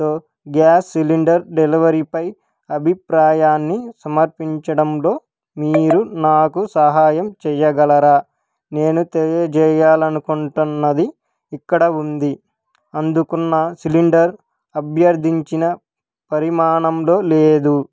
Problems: background sounds at intervals